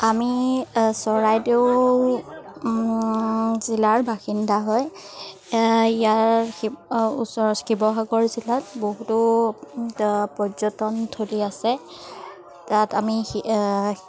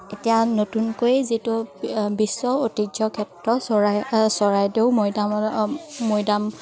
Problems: none marked